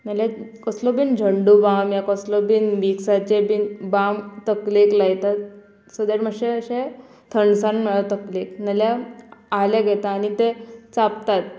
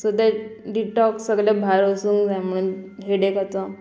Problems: none marked